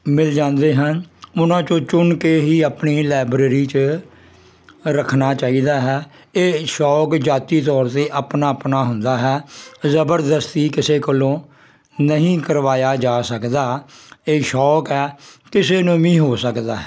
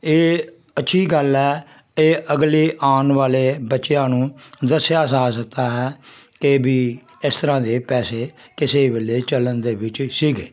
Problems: constant background noise